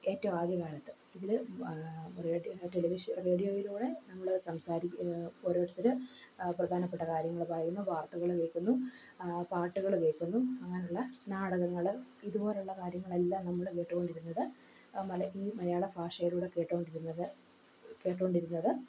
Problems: echo, low volume